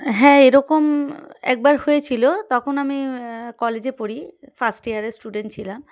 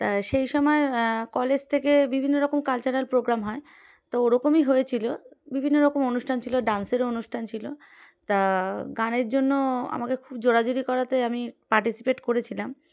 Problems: background sounds at intervals